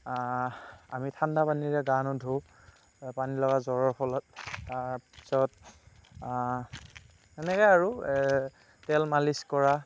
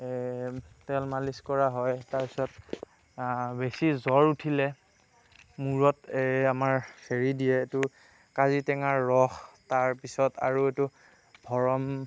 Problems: none marked